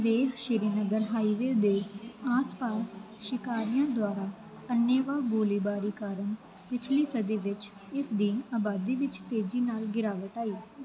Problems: none marked